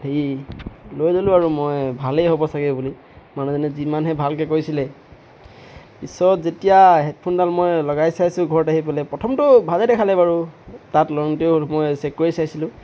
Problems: none marked